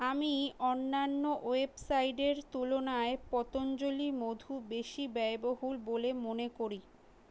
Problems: none marked